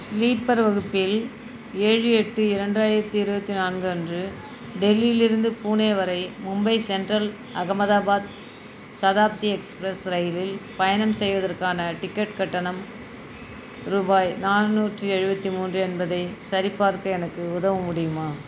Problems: constant background noise